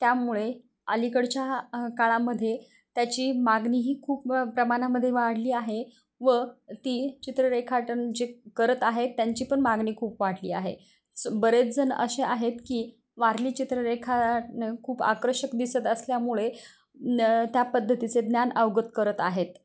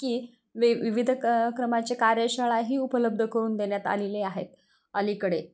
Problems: none marked